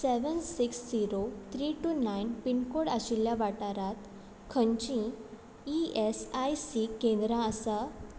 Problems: constant background noise